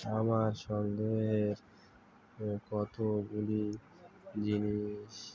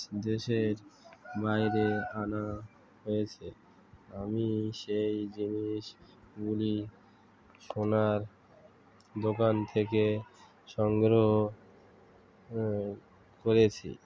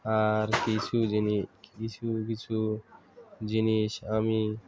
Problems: constant background noise, continuous background conversations